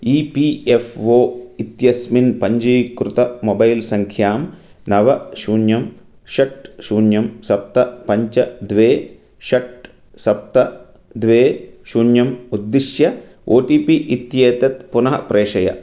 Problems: none marked